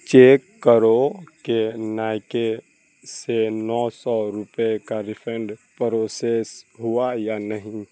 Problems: constant background noise